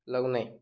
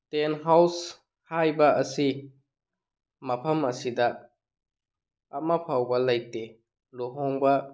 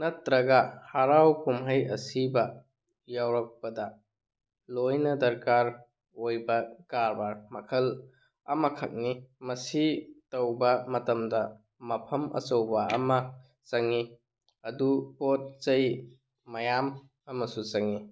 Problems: none marked